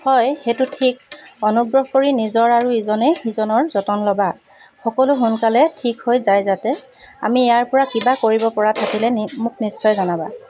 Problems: constant background noise